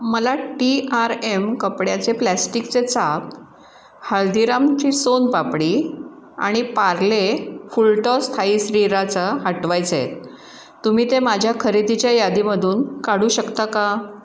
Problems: constant background noise, echo